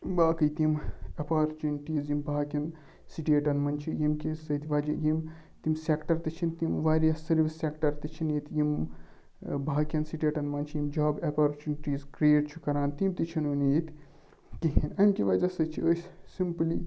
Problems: low volume